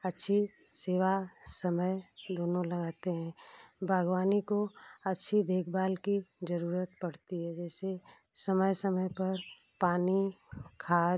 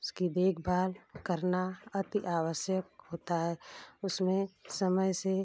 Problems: none marked